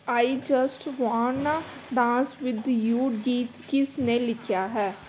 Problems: background sounds at intervals